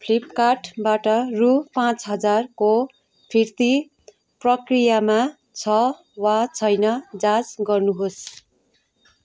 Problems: none marked